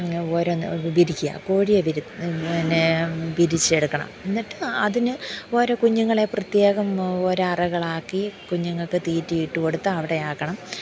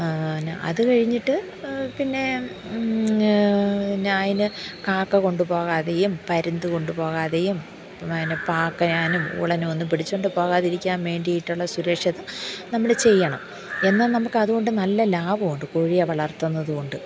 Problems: background sounds at intervals, low volume